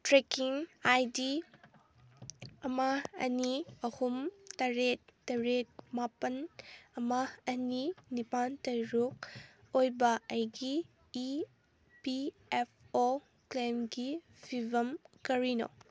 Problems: none marked